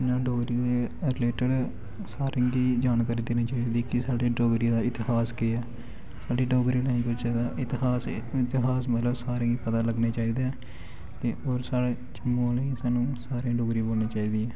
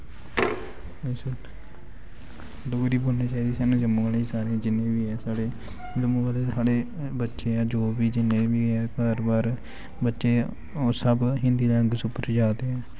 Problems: background sounds at intervals